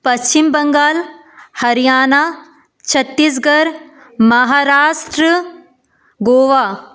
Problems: constant background noise, background conversations at intervals